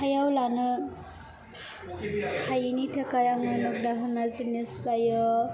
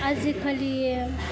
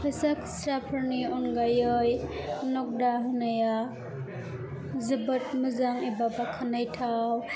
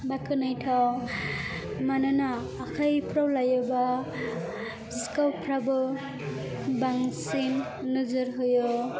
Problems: continuous background conversations